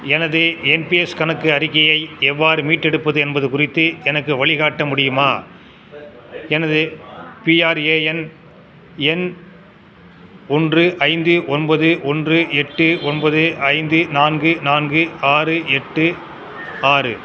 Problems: constant background noise